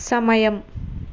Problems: constant background noise